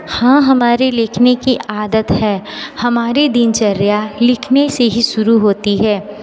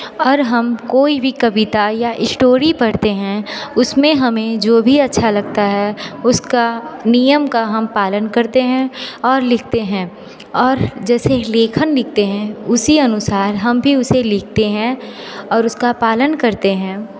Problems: constant background noise, continuous background conversations, echo